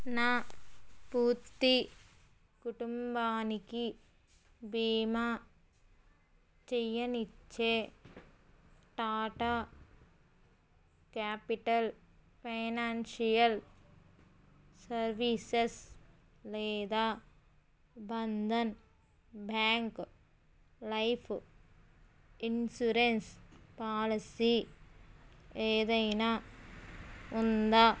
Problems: background sounds at intervals